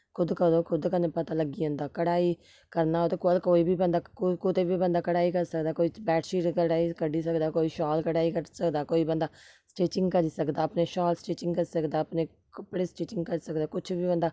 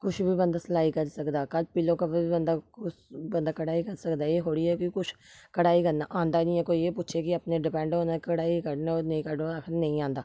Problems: none marked